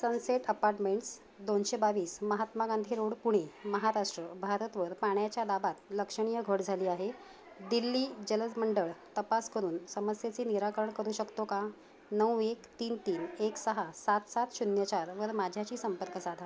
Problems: none marked